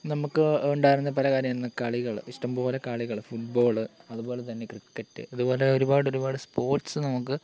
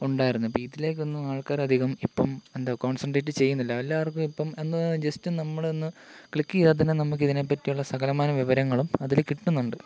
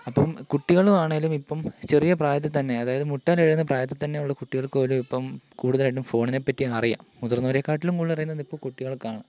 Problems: constant background noise, low volume